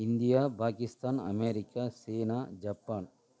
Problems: none marked